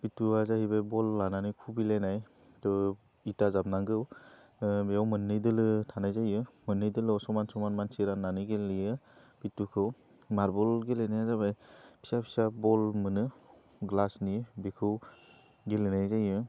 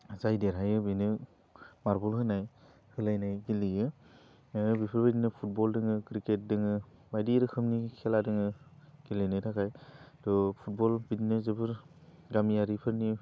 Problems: low volume